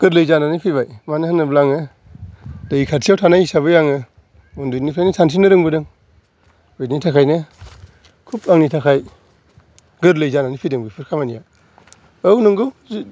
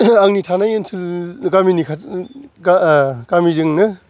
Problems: background sounds at intervals